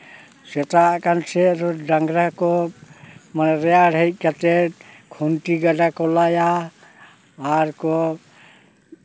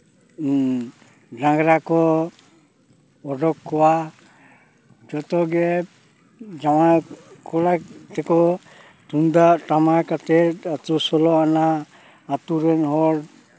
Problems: constant background noise, background conversations at intervals